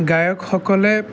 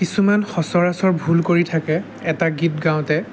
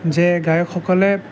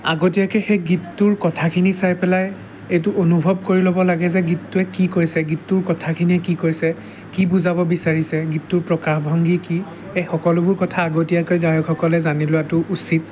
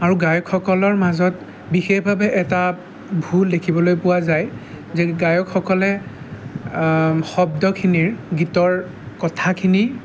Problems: background sounds at intervals